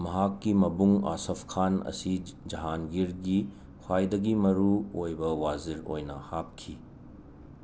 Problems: constant background noise